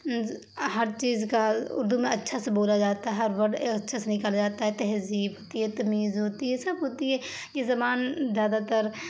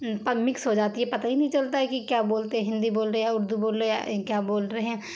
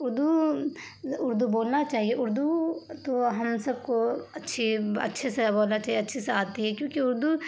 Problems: constant background noise